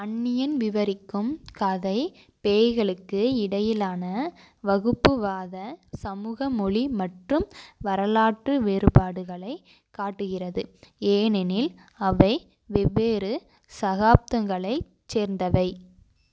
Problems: none marked